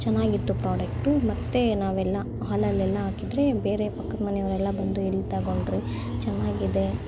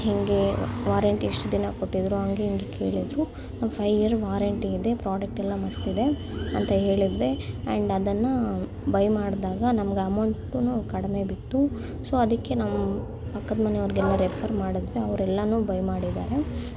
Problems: constant background noise